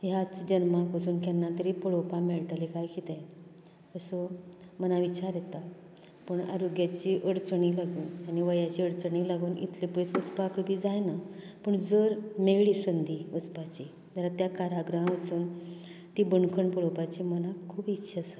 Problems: constant background noise